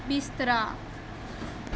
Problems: constant background noise